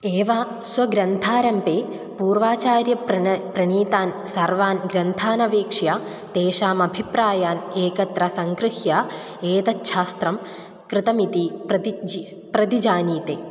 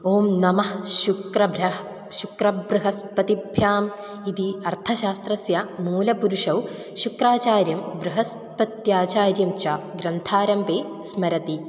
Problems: none marked